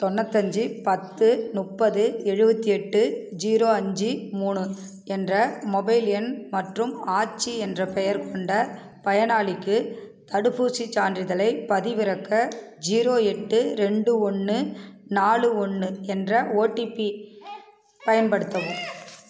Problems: background conversations at intervals